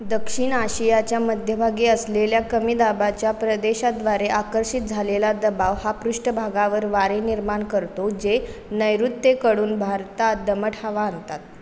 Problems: background sounds at intervals, echo